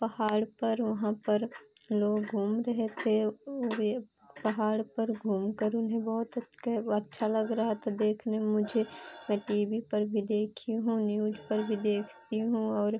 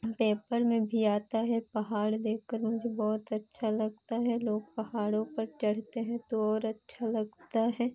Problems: constant background noise